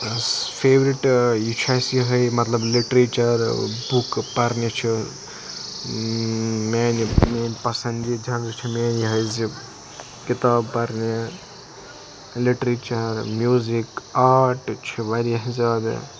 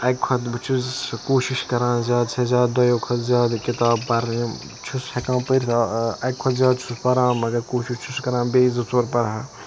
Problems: constant background noise